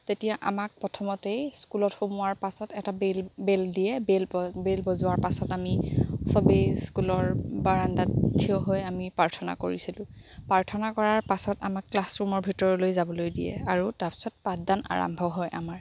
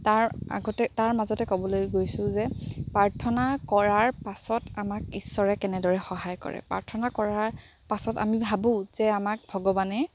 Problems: background sounds at intervals